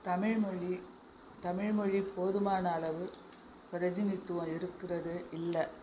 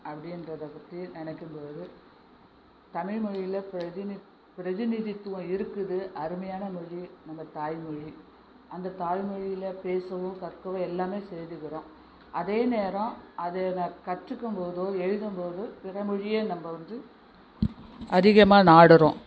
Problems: constant background noise